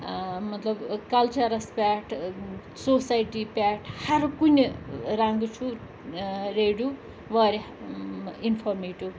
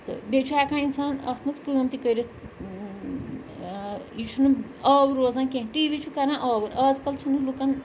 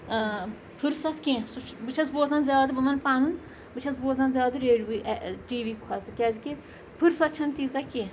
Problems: constant background noise, background conversations at intervals